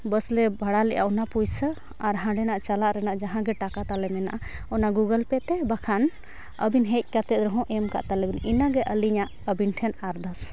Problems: none marked